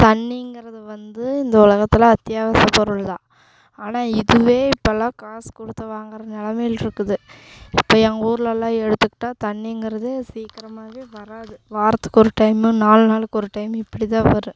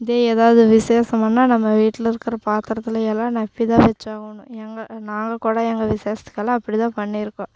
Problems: constant background noise